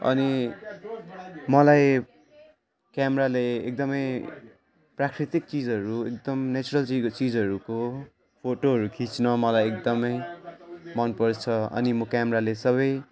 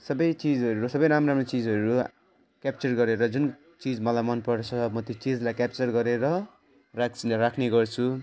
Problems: constant background noise, continuous background conversations